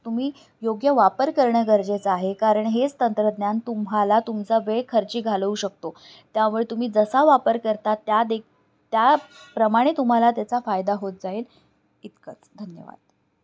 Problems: none marked